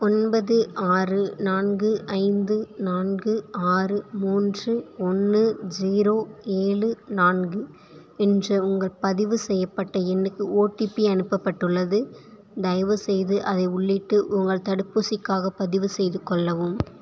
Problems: none marked